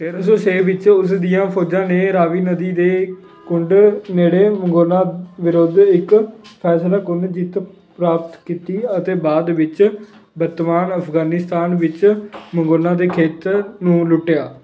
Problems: background sounds at intervals